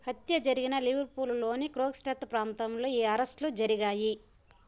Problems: constant background noise, background conversations at intervals